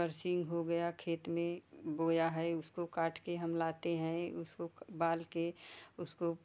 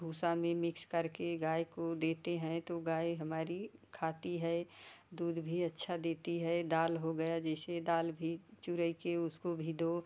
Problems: none marked